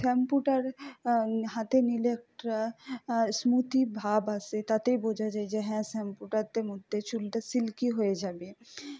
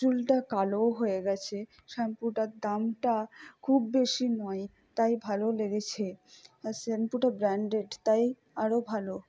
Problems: low volume